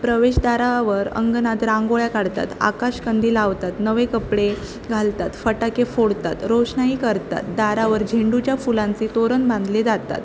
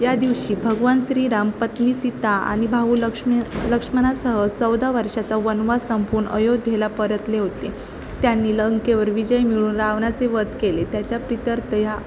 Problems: constant background noise